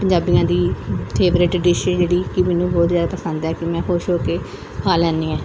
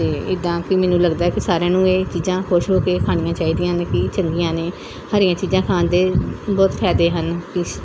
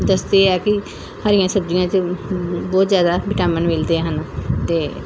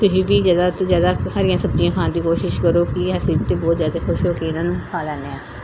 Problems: background sounds at intervals